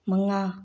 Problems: low volume